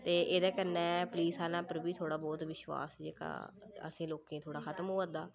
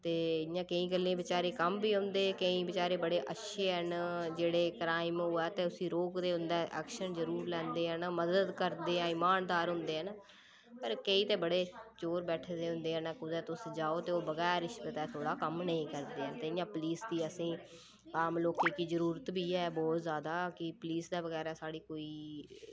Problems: low volume